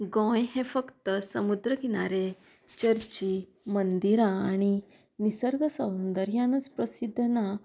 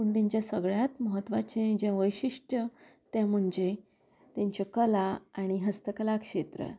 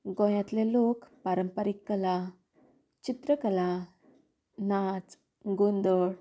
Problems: constant background noise